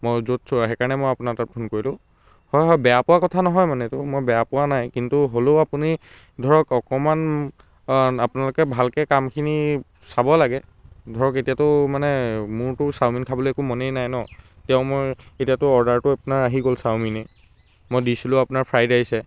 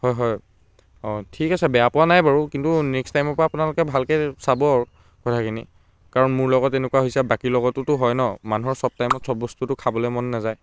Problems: constant background noise